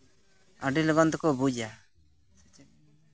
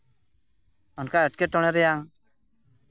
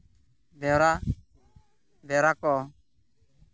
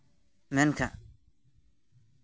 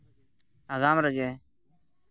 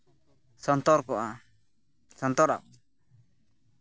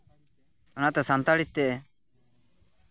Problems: constant background noise, background conversations at intervals